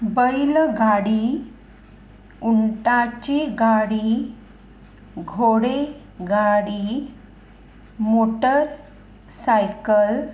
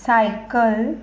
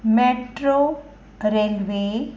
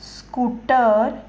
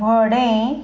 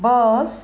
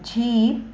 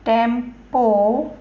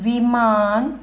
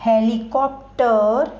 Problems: none marked